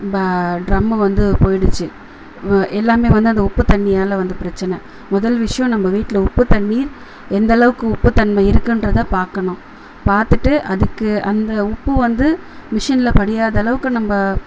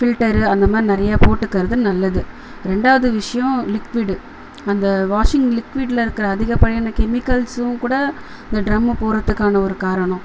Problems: constant background noise